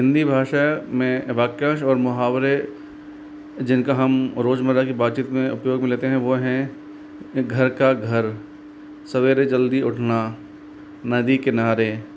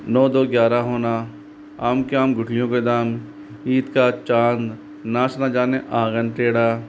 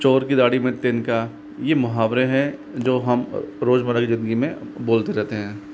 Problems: none marked